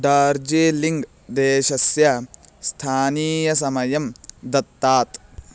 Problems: none marked